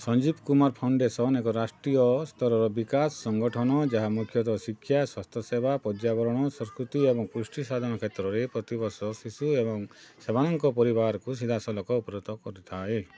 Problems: continuous background conversations